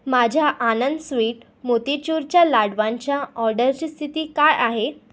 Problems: background sounds at intervals